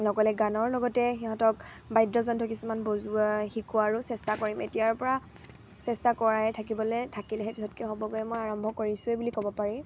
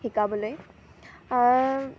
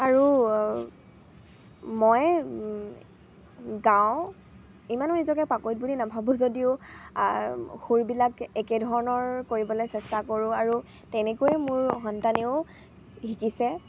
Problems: constant background noise, background conversations at intervals